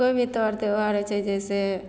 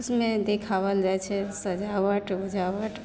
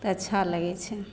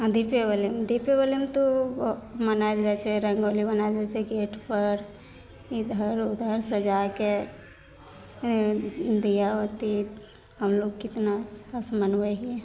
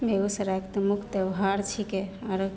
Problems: none marked